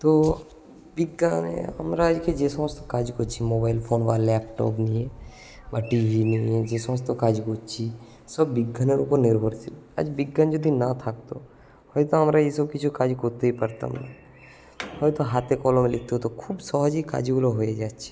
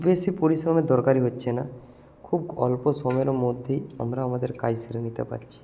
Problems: constant background noise